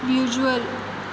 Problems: constant background noise